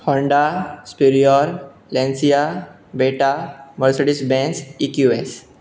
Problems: none marked